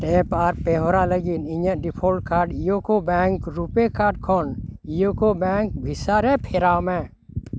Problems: constant background noise, background conversations at intervals